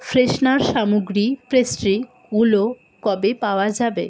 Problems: constant background noise